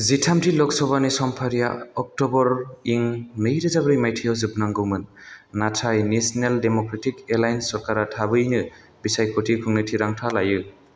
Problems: constant background noise